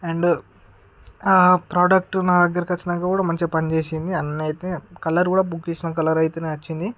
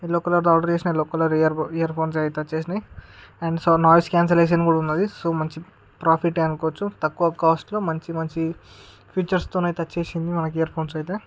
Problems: none marked